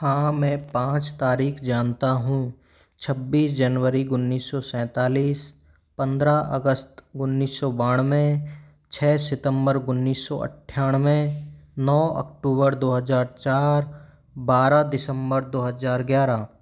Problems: background sounds at intervals